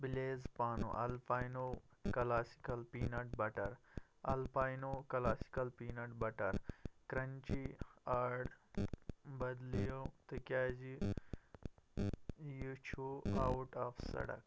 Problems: constant background noise, low volume